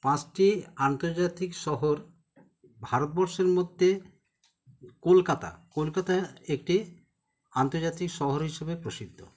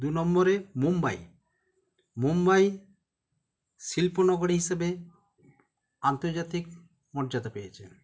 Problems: background sounds at intervals